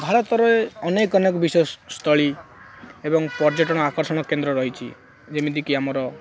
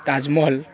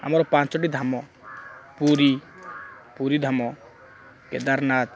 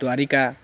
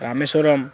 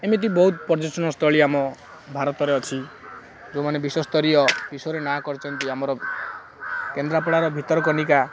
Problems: background sounds at intervals